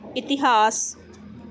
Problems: none marked